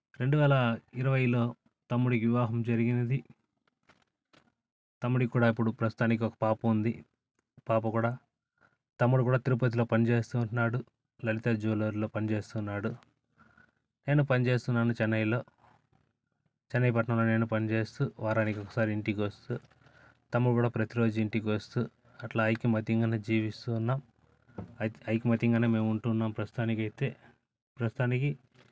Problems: none marked